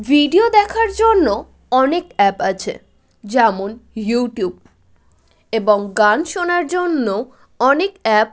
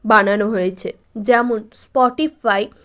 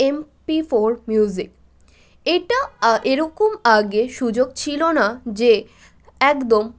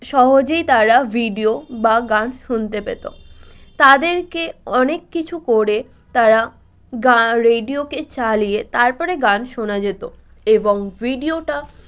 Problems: none marked